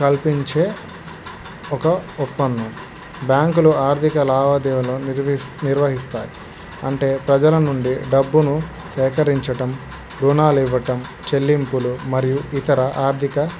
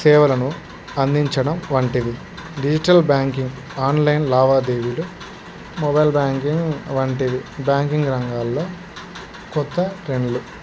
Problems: constant background noise